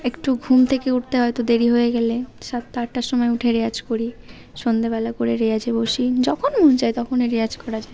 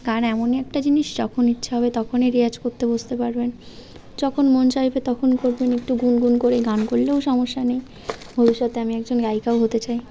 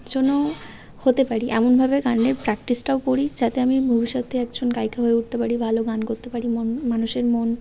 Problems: none marked